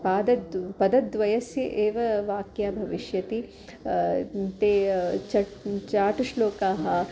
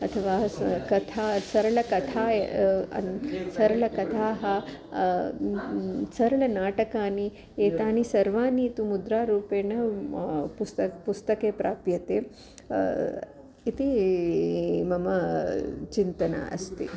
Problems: constant background noise, background conversations at intervals